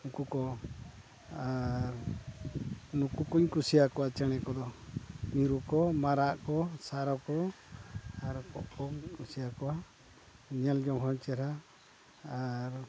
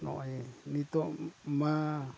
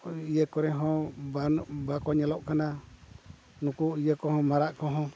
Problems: background sounds at intervals, low volume